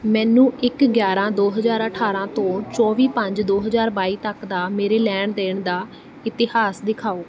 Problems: none marked